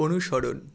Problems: constant background noise